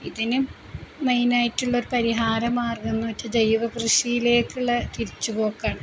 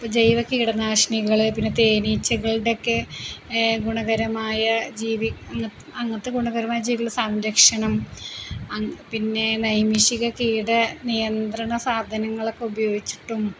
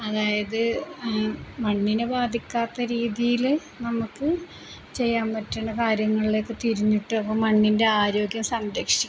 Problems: constant background noise, low volume